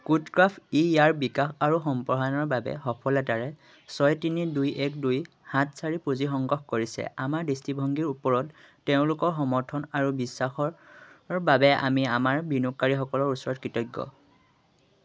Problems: constant background noise